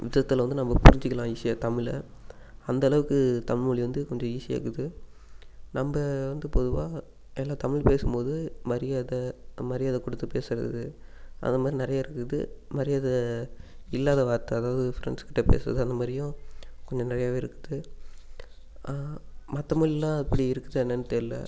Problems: constant background noise